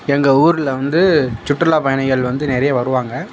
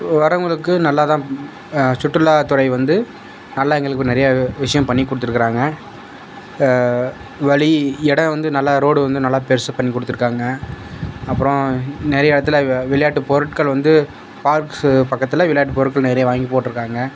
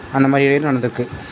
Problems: constant background noise